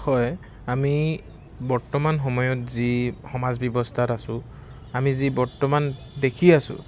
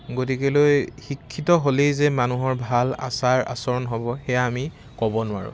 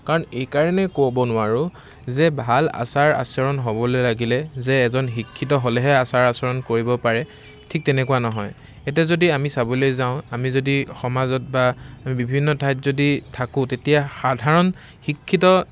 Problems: constant background noise